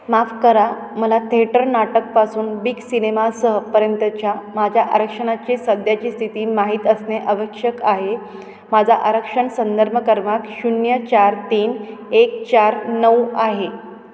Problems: constant background noise, continuous background conversations, echo